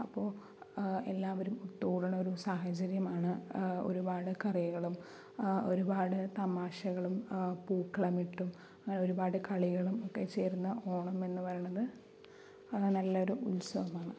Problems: low volume